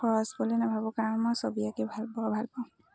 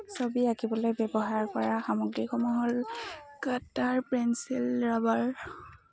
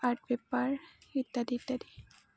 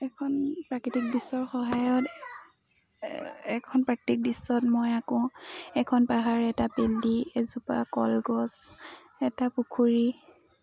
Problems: constant background noise, background conversations at intervals